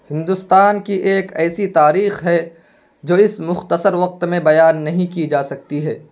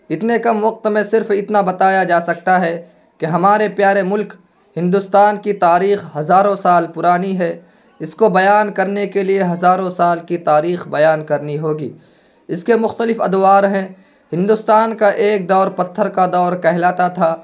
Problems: constant background noise